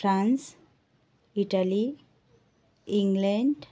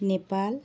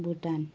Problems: none marked